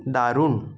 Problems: constant background noise